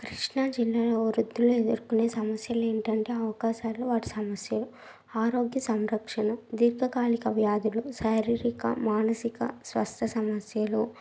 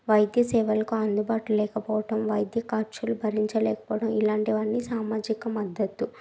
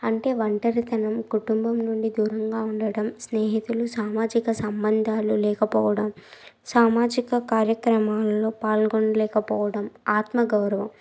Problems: background sounds at intervals